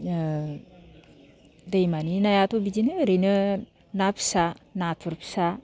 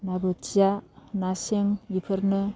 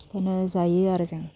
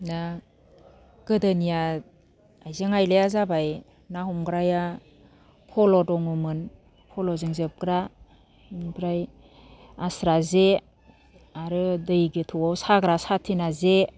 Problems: none marked